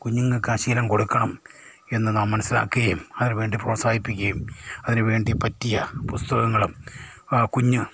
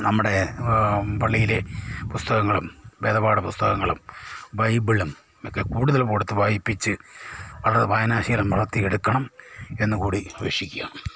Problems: low volume